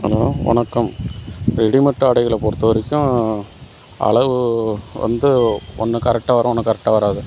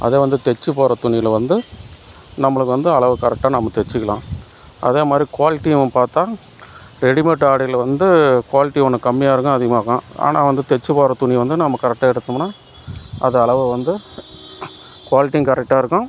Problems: constant background noise